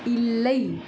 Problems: continuous background conversations